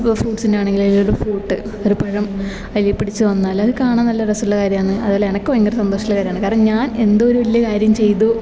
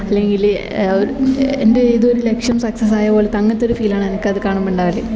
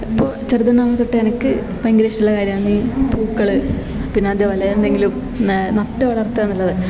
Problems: background sounds at intervals